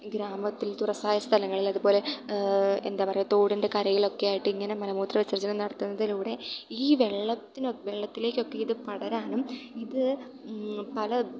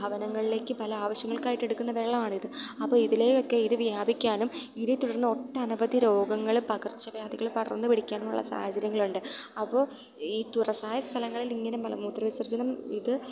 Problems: background sounds at intervals